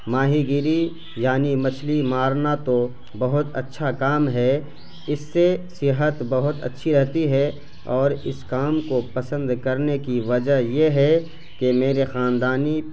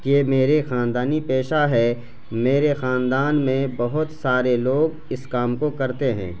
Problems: constant background noise